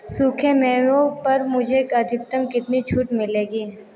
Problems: constant background noise, background conversations at intervals